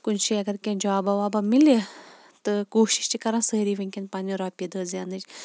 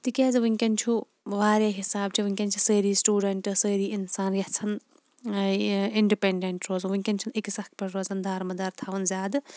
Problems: background sounds at intervals